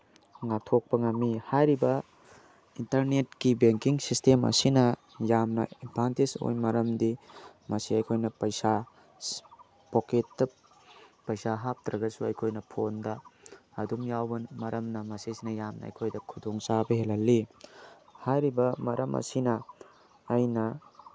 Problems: none marked